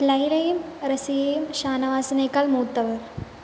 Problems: constant background noise